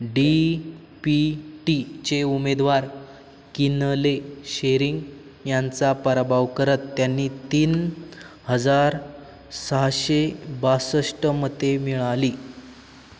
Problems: none marked